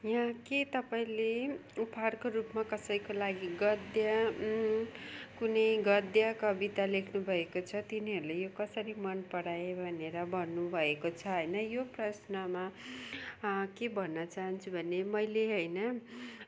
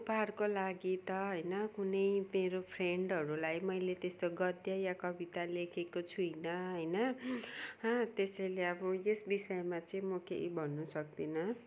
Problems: none marked